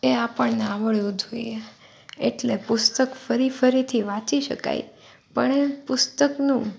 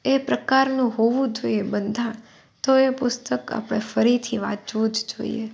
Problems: none marked